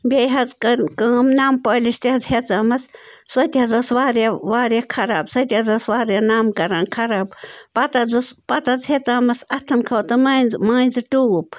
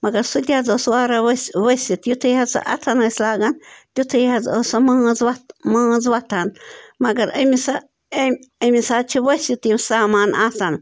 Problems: none marked